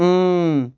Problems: background sounds at intervals